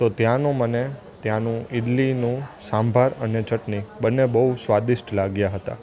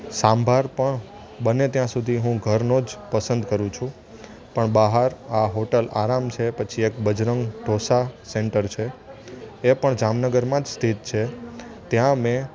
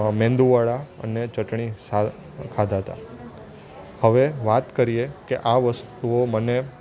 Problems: constant background noise